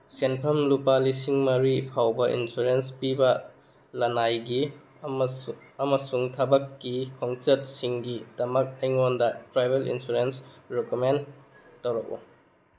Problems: background sounds at intervals